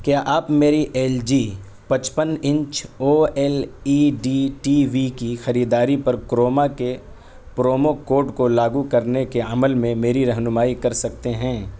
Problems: background sounds at intervals